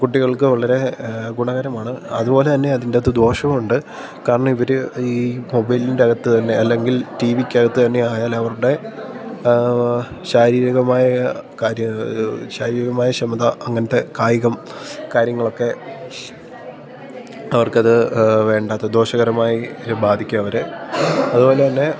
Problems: background sounds at intervals